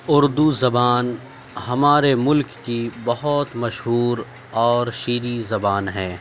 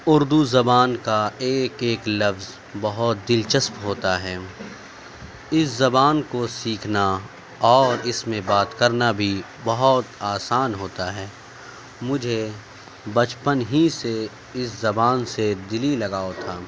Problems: constant background noise, background conversations at intervals